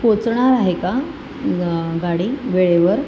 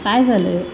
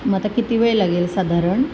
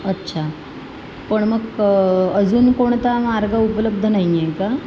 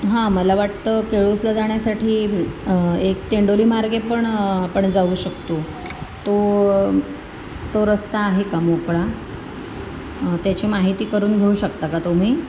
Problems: constant background noise